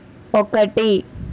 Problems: constant background noise